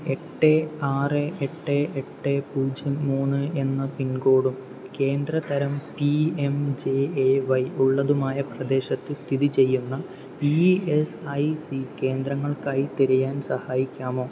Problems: constant background noise, low volume